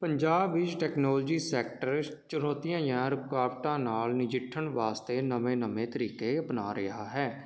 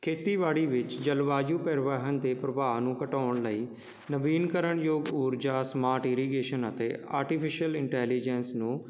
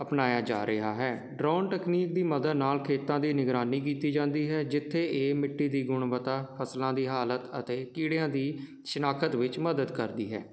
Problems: constant background noise